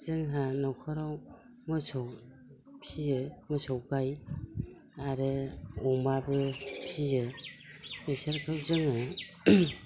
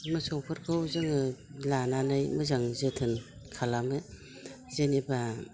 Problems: none marked